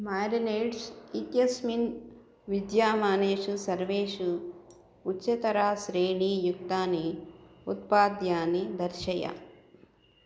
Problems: none marked